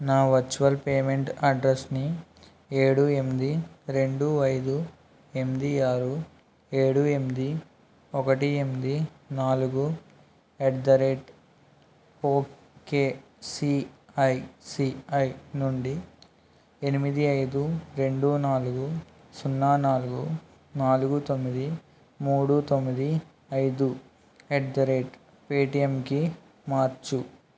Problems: constant background noise